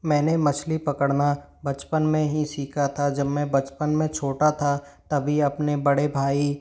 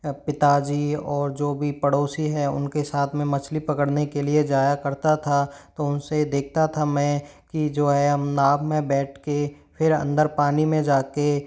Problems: none marked